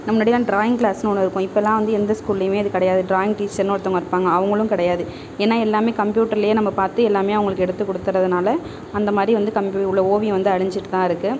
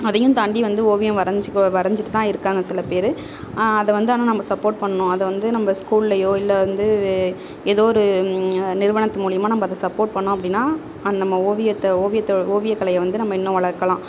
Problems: background sounds at intervals